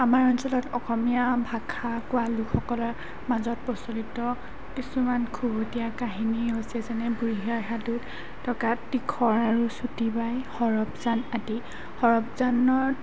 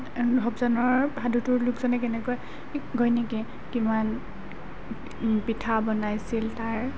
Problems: background sounds at intervals